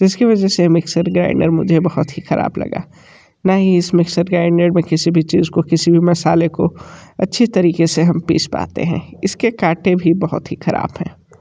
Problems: none marked